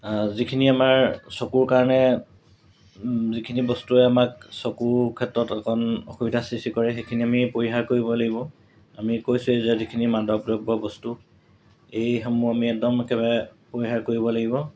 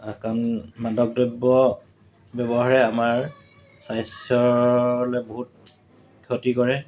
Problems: constant background noise, background conversations at intervals